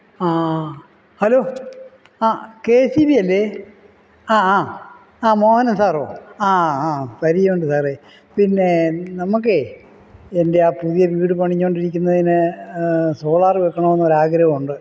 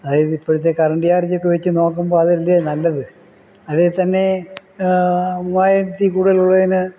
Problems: none marked